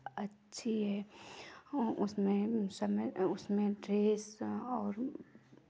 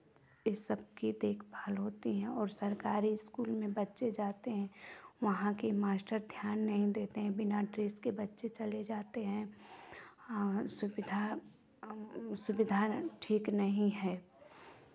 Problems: background sounds at intervals, background conversations at intervals